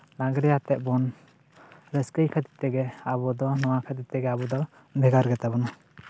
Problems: background sounds at intervals